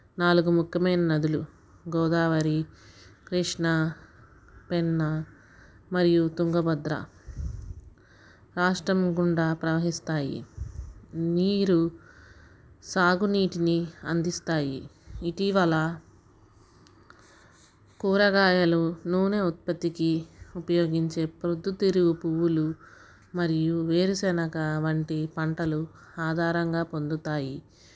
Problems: background sounds at intervals